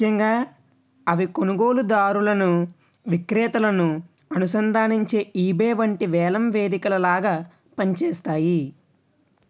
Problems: none marked